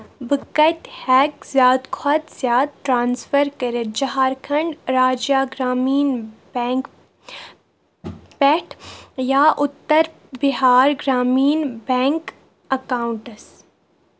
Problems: background sounds at intervals